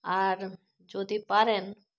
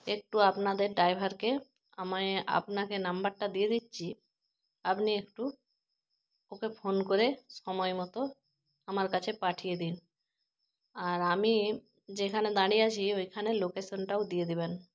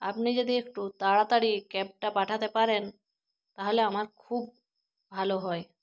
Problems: constant background noise